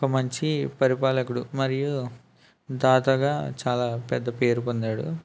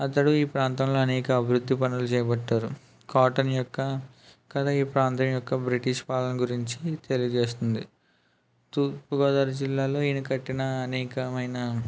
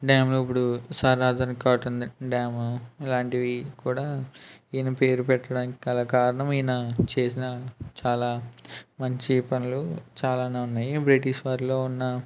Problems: none marked